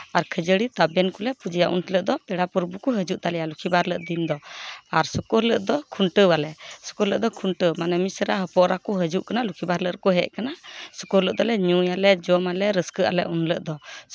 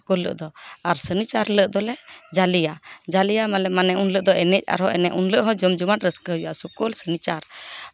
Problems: background sounds at intervals, background conversations at intervals